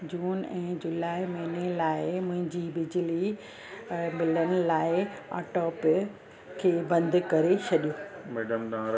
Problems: constant background noise, background conversations at intervals